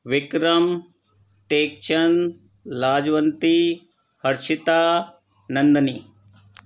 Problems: none marked